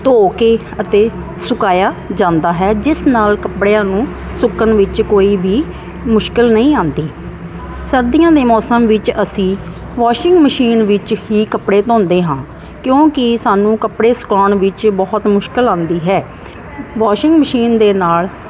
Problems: constant background noise